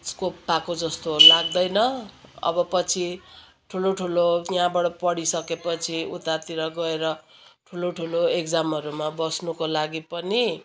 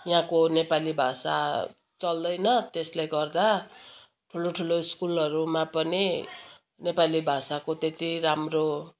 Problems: constant background noise, continuous background conversations